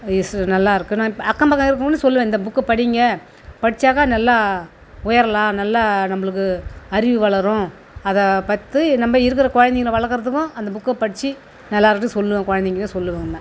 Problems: background sounds at intervals